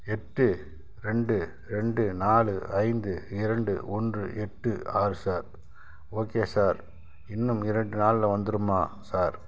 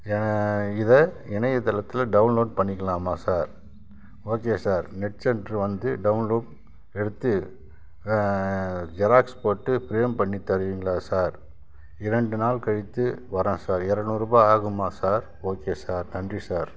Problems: none marked